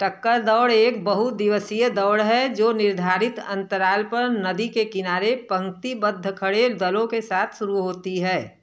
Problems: constant background noise